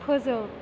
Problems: constant background noise